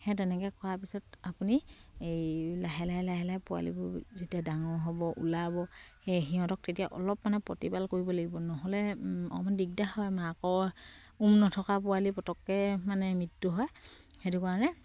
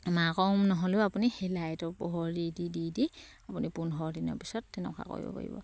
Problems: none marked